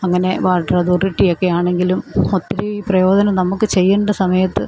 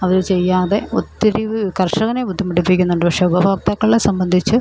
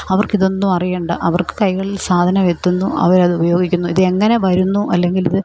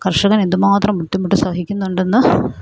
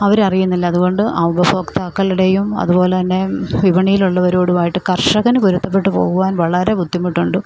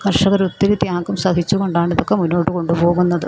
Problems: none marked